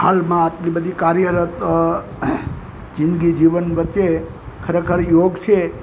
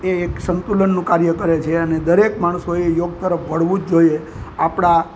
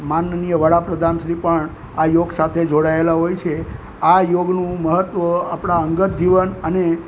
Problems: constant background noise